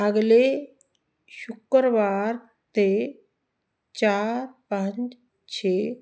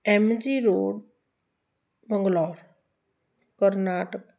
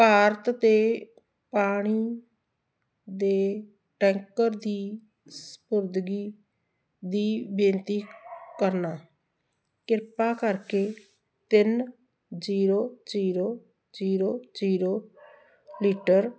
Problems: constant background noise